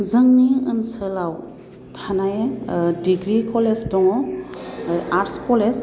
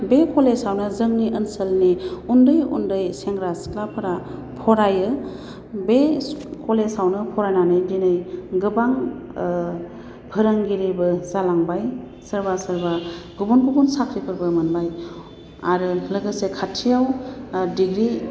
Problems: constant background noise